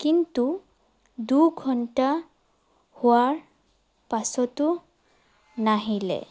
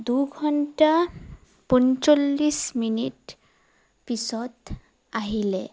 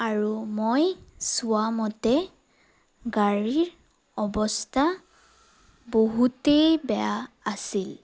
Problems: none marked